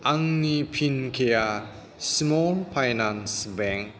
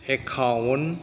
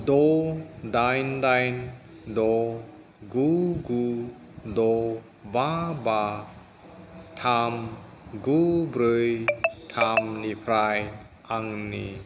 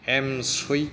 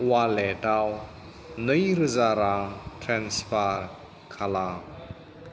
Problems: background sounds at intervals